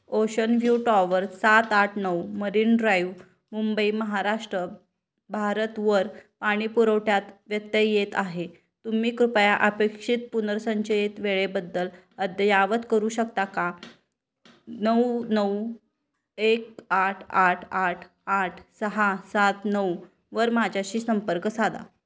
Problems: background sounds at intervals